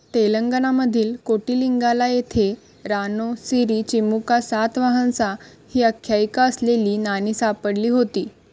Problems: constant background noise